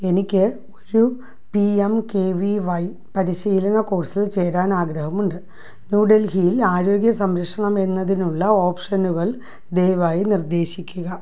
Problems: none marked